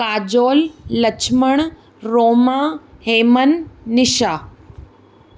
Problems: none marked